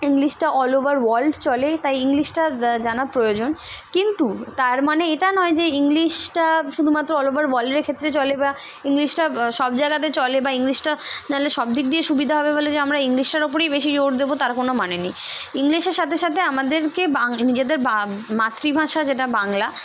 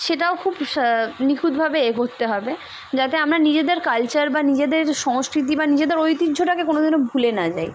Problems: none marked